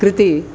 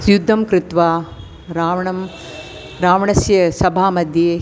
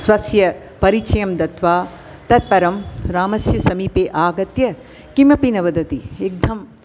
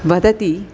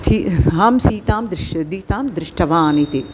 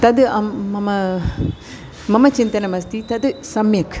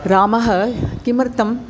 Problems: constant background noise